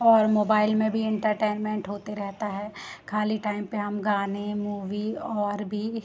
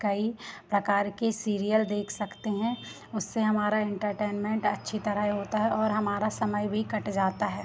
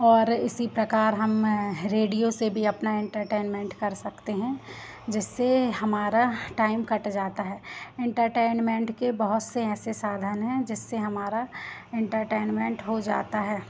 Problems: constant background noise